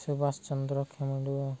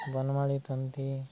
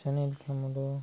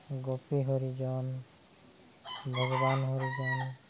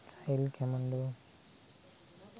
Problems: none marked